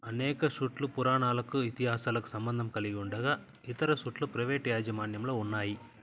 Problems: constant background noise